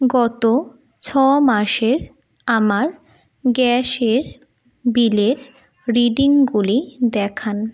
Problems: none marked